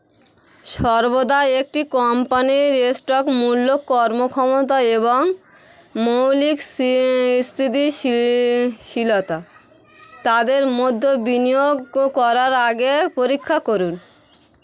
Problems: constant background noise, background conversations at intervals